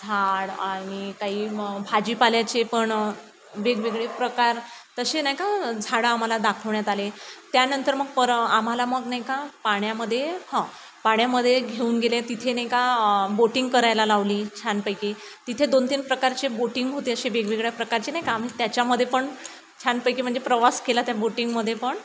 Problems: constant background noise